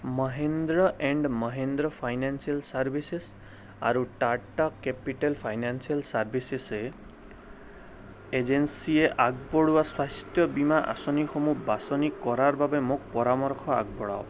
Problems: none marked